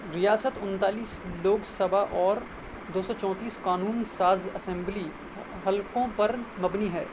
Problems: constant background noise